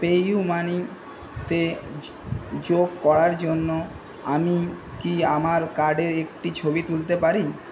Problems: constant background noise